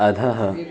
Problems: continuous background conversations